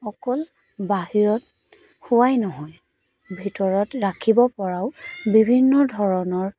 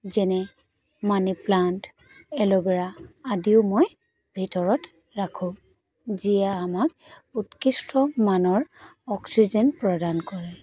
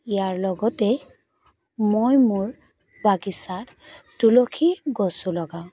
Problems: none marked